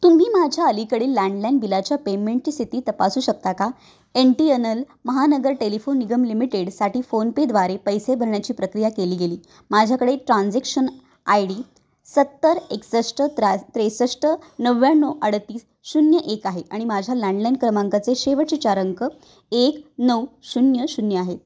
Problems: none marked